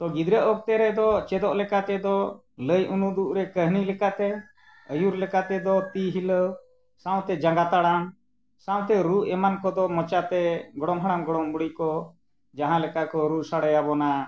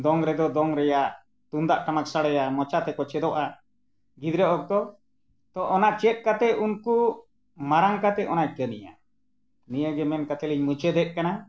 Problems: none marked